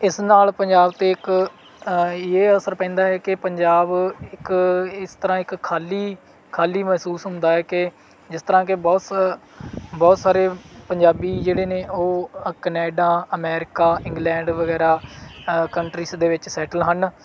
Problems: background sounds at intervals